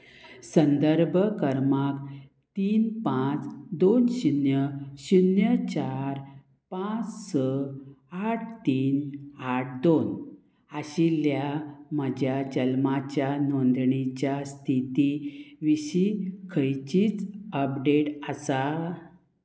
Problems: constant background noise